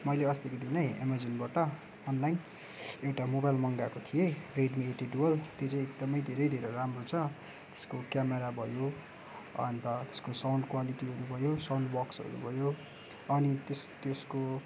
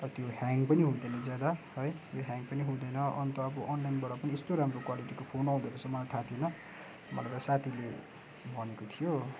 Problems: background sounds at intervals